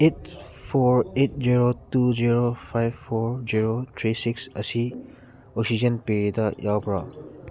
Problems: constant background noise